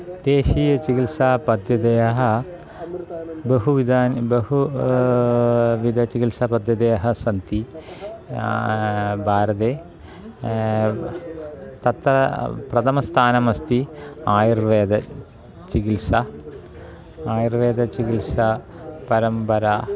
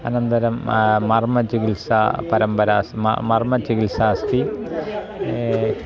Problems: continuous background conversations